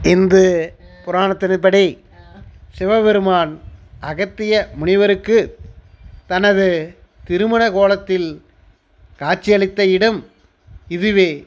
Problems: background conversations at intervals